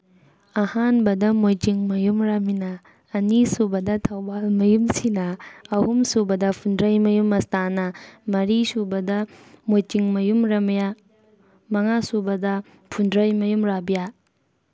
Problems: background conversations at intervals